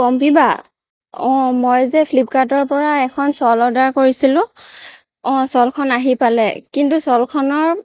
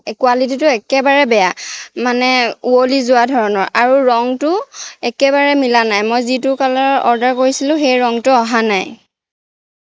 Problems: background sounds at intervals